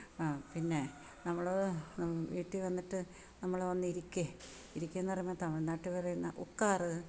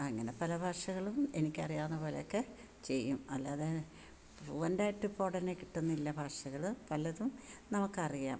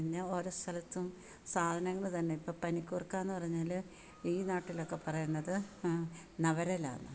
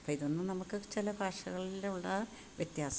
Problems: background sounds at intervals